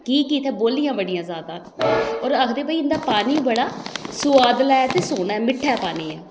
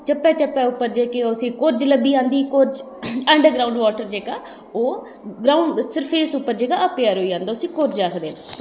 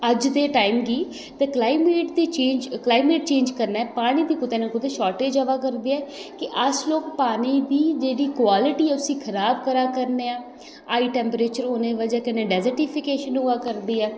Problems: echo